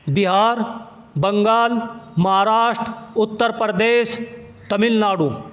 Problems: constant background noise